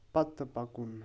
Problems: none marked